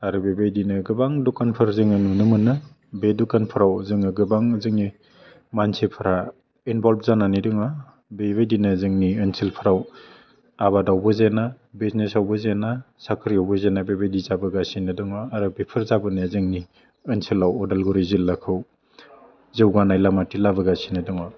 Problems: constant background noise